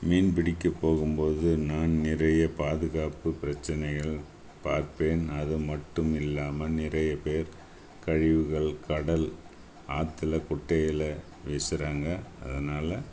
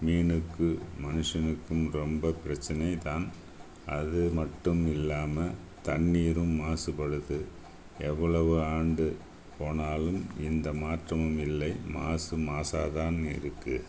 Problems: background sounds at intervals